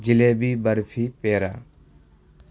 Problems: constant background noise